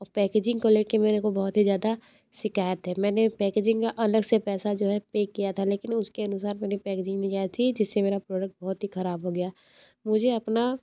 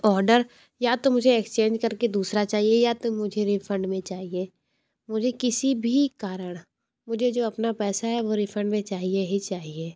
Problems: low volume